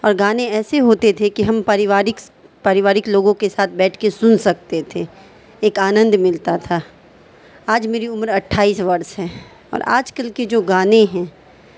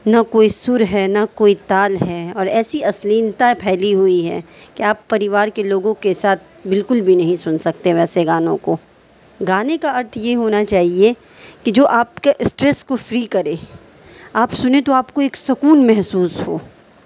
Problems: constant background noise